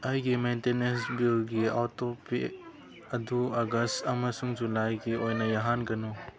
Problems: background sounds at intervals